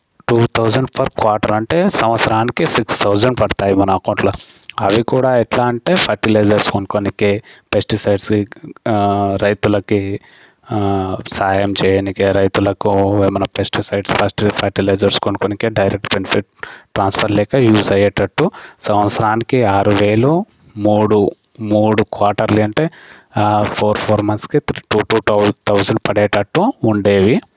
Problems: constant background noise